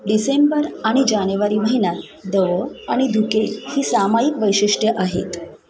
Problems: constant background noise, continuous background conversations